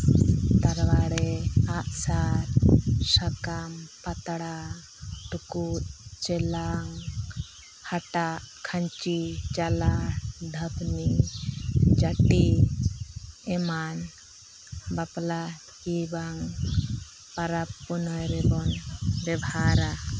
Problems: constant background noise, low volume